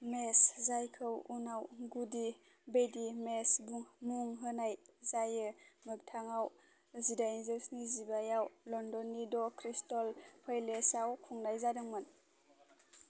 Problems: constant background noise